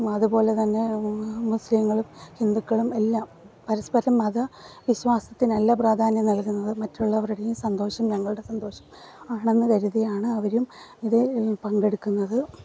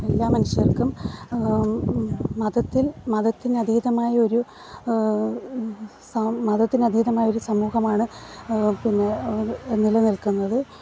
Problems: background sounds at intervals, background conversations at intervals